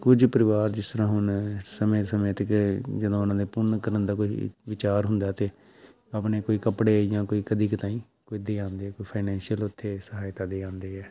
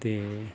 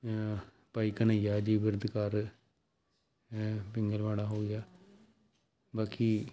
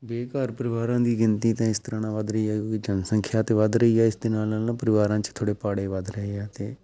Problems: background sounds at intervals